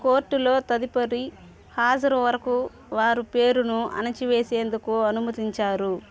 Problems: constant background noise, background conversations at intervals